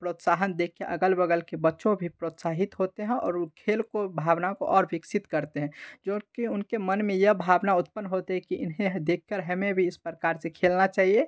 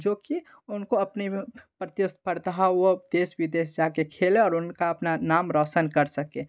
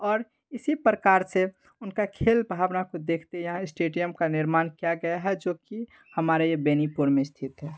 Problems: none marked